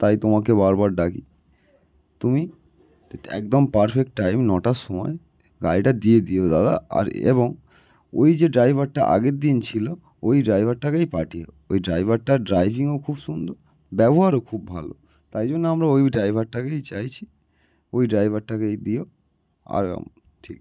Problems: none marked